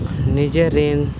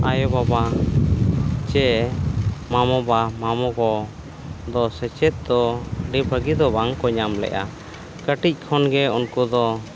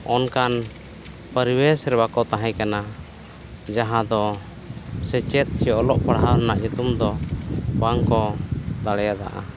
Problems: none marked